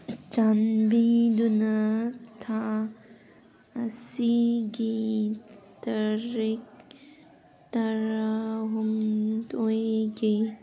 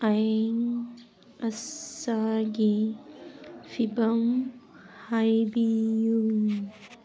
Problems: background sounds at intervals